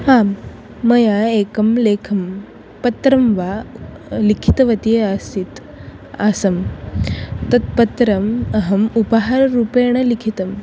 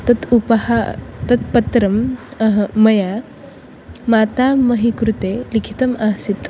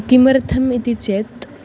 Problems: constant background noise